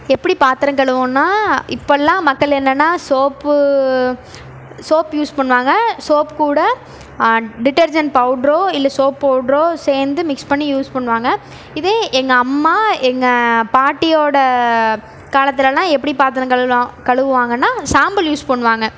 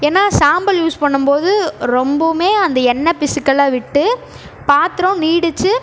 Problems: background sounds at intervals